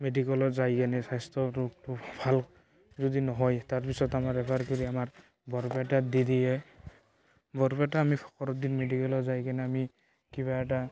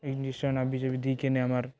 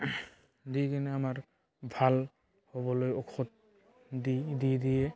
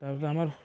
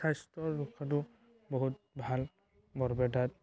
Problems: constant background noise, background conversations at intervals